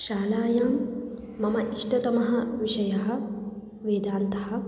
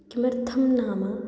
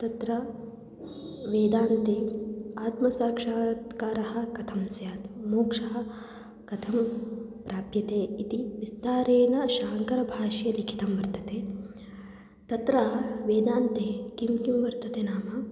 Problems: none marked